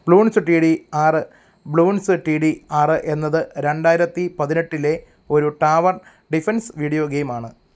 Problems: background conversations at intervals